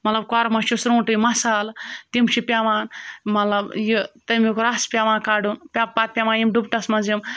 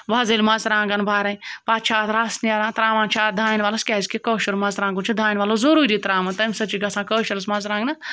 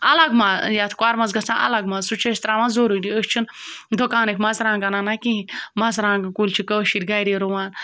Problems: background sounds at intervals